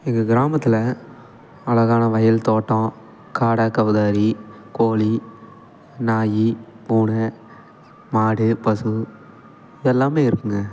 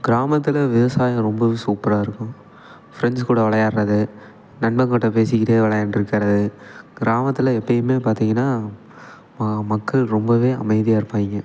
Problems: none marked